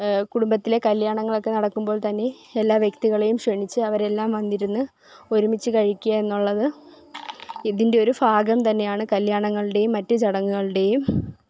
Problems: background sounds at intervals